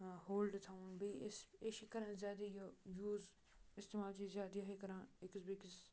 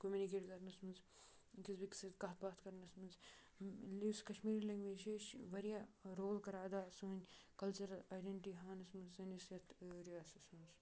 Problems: low volume